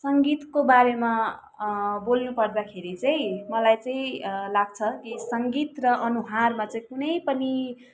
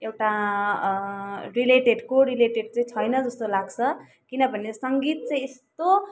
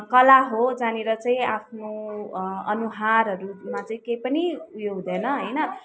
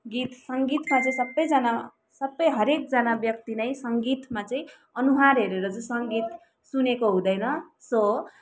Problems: continuous background conversations